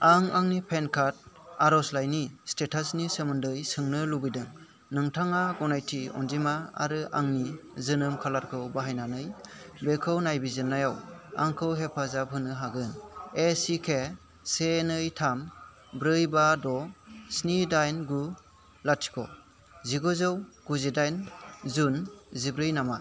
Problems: none marked